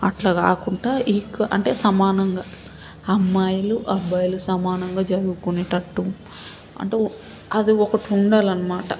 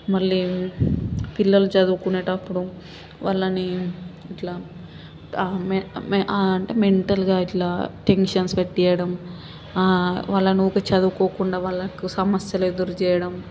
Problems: none marked